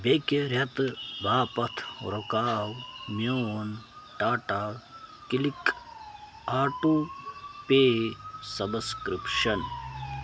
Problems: constant background noise